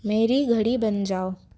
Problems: constant background noise